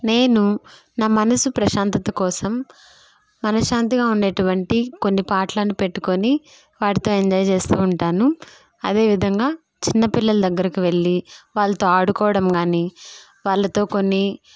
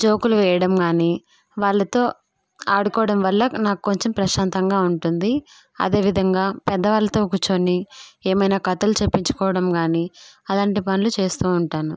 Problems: none marked